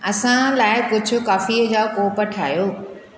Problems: constant background noise, echo